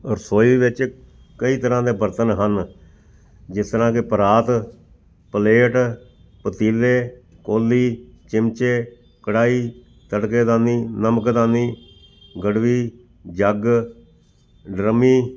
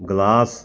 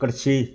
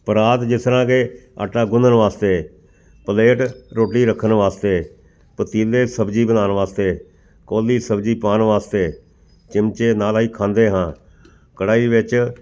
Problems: background sounds at intervals